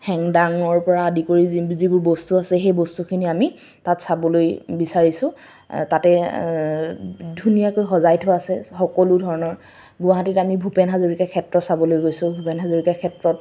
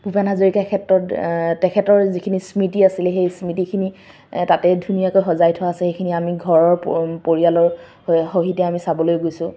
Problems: none marked